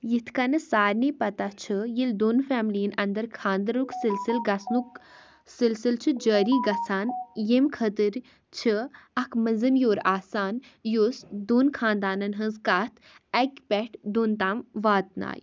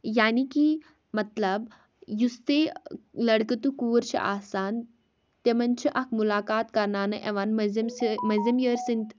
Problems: background sounds at intervals